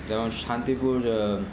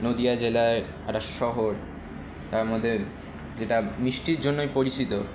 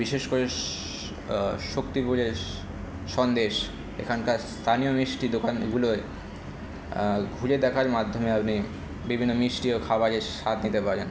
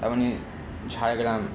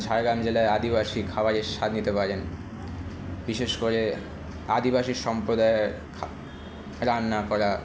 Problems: constant background noise, continuous background conversations